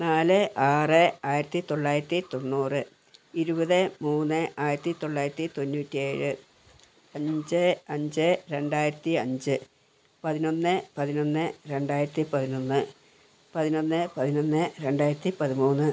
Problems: none marked